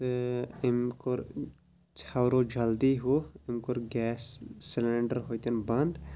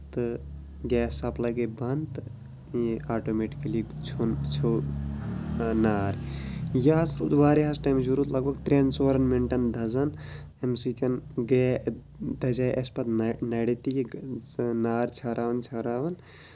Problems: low volume